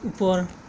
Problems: constant background noise